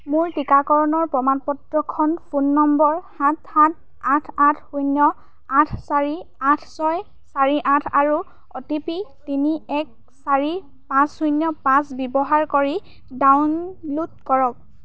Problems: background sounds at intervals